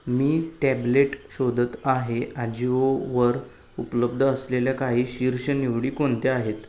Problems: none marked